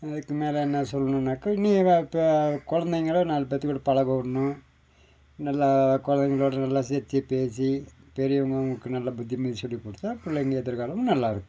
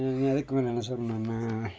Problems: background sounds at intervals